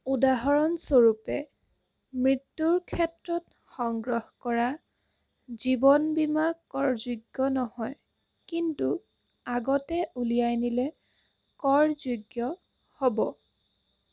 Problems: constant background noise